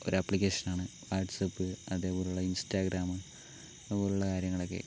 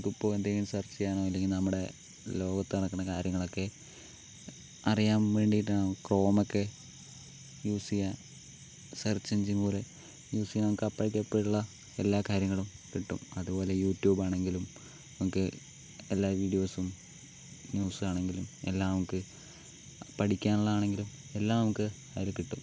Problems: low volume